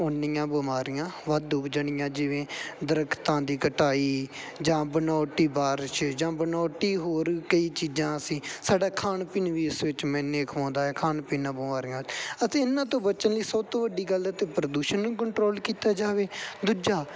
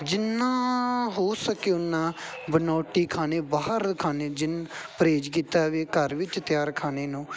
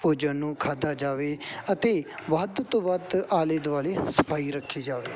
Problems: background sounds at intervals, background conversations at intervals